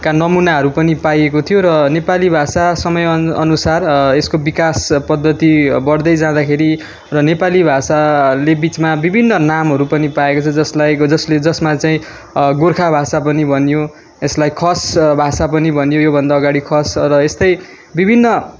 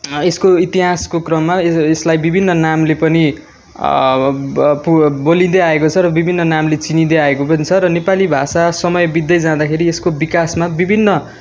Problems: none marked